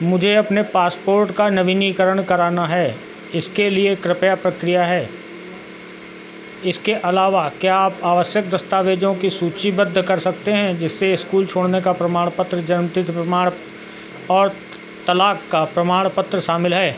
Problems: constant background noise